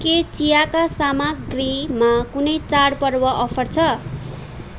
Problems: constant background noise